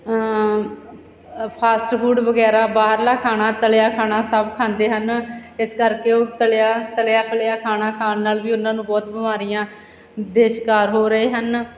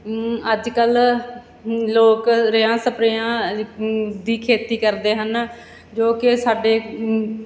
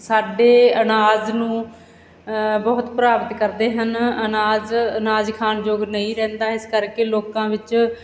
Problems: none marked